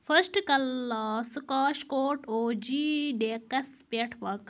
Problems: background sounds at intervals